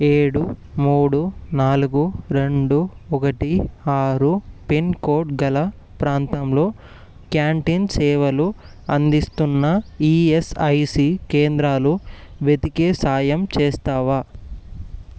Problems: none marked